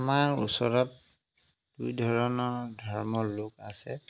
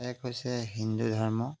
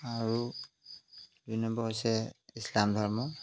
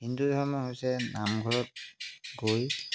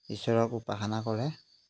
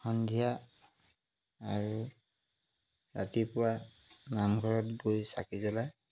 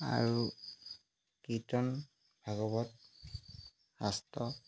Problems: background sounds at intervals